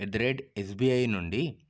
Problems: low volume